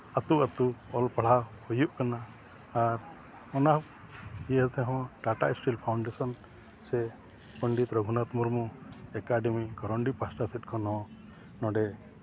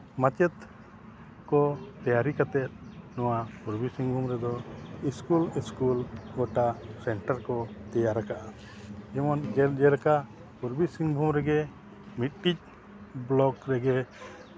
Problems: background sounds at intervals